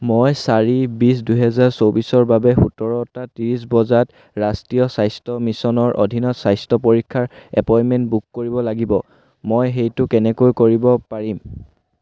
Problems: none marked